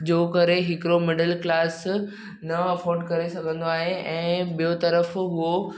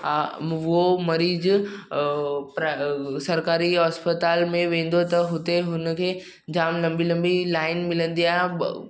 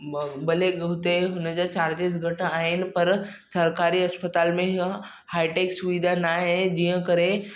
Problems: background sounds at intervals, echo